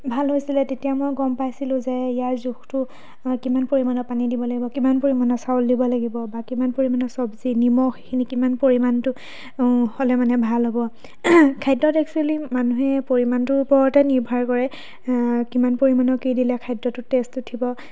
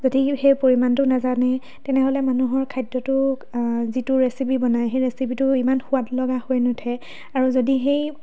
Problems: background sounds at intervals, background conversations at intervals